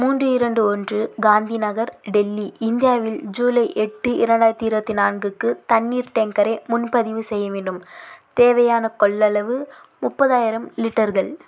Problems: constant background noise